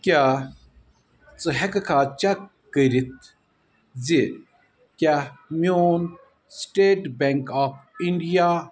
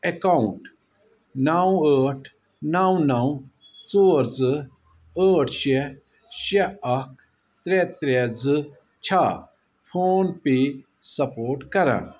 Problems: none marked